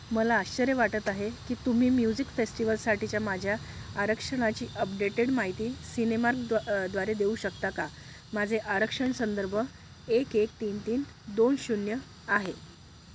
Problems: constant background noise